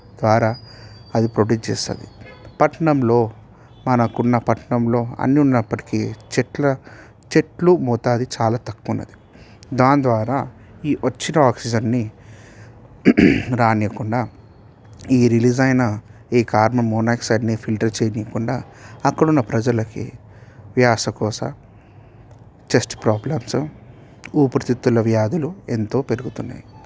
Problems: background sounds at intervals